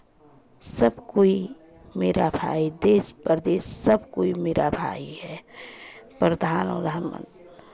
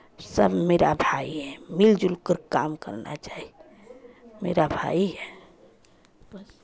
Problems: background sounds at intervals, continuous background conversations